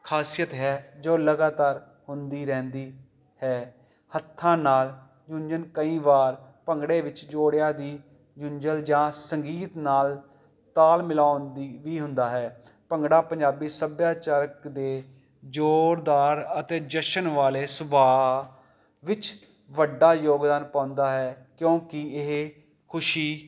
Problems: none marked